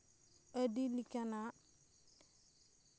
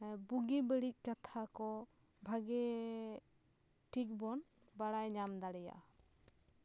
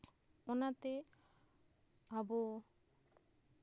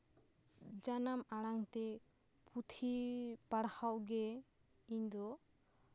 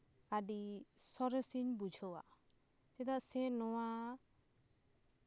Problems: background sounds at intervals